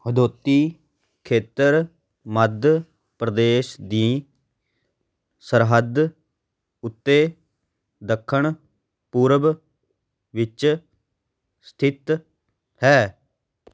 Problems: background sounds at intervals